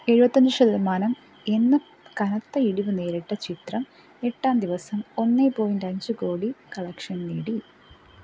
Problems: low volume